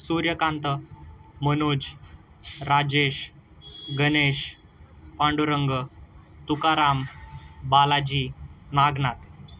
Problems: none marked